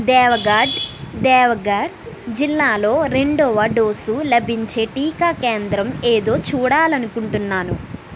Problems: constant background noise